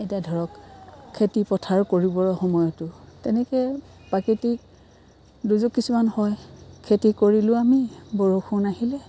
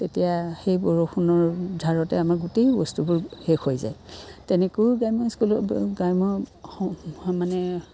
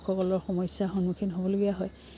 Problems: constant background noise